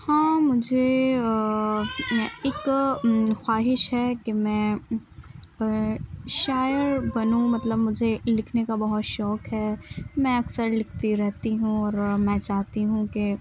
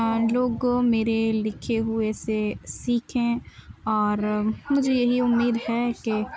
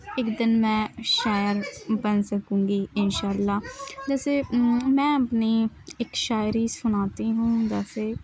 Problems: background sounds at intervals, continuous background conversations